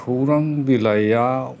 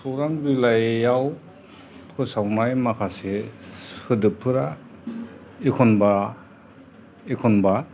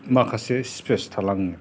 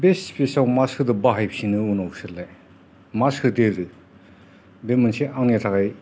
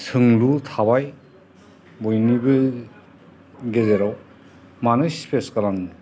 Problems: constant background noise, background conversations at intervals